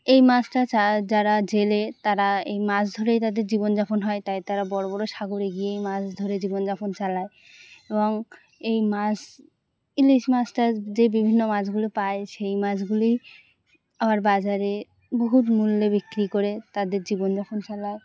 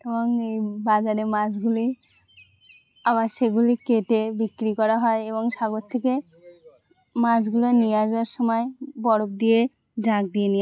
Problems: constant background noise